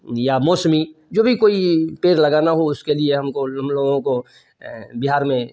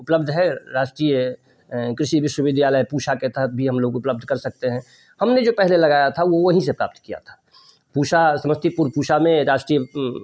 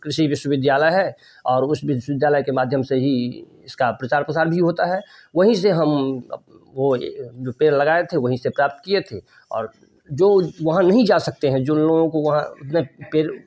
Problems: none marked